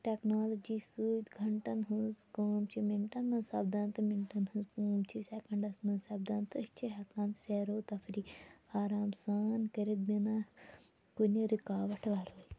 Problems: background sounds at intervals, background conversations at intervals, low volume